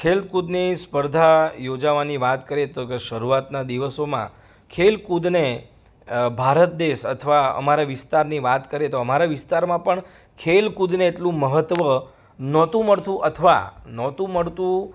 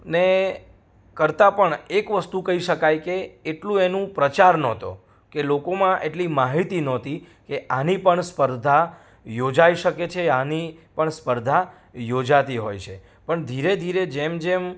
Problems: none marked